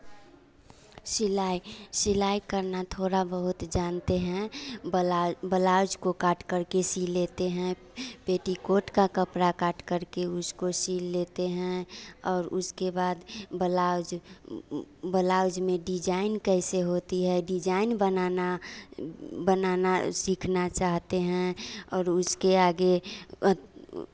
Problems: none marked